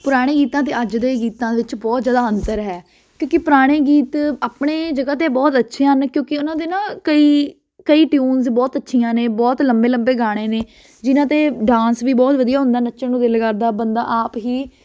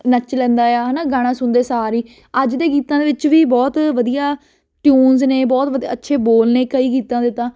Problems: constant background noise